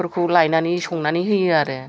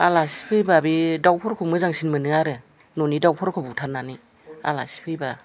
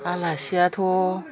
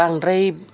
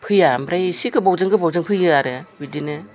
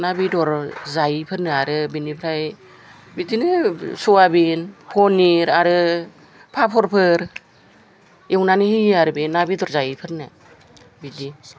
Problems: background conversations at intervals